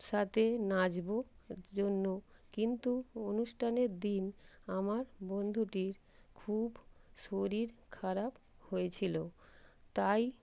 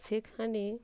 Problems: constant background noise